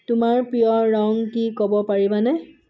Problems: background sounds at intervals